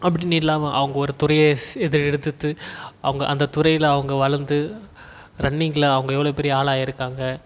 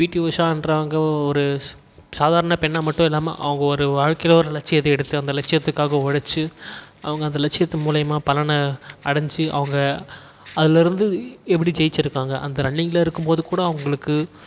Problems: background sounds at intervals